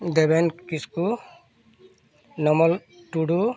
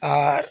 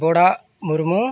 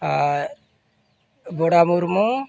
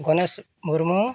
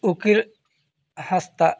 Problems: background sounds at intervals, continuous background conversations